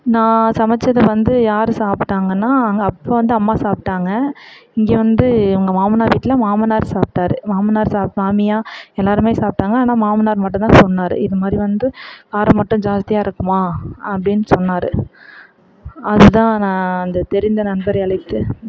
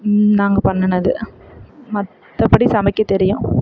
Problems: none marked